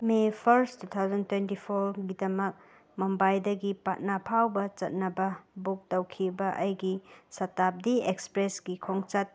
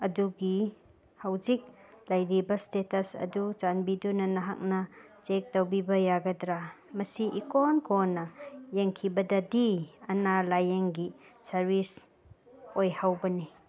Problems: background sounds at intervals